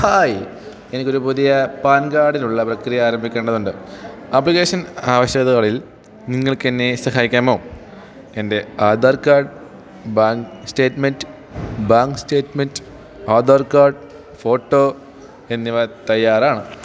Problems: none marked